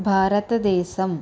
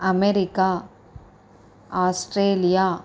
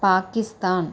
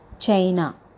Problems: none marked